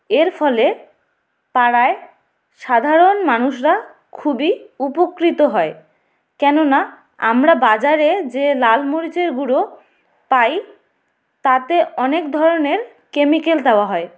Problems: none marked